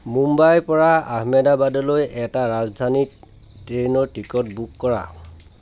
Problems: background sounds at intervals, background conversations at intervals